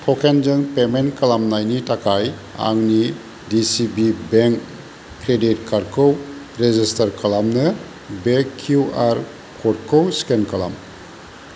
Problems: constant background noise